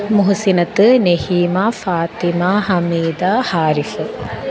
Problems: constant background noise